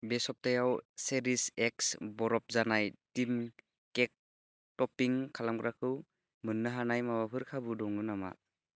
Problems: low volume